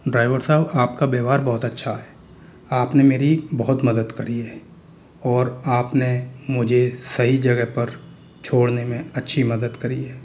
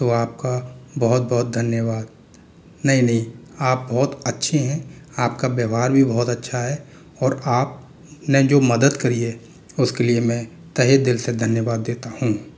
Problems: none marked